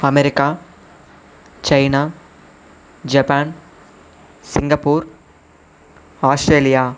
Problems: constant background noise